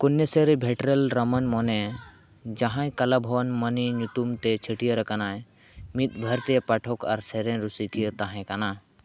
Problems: background conversations at intervals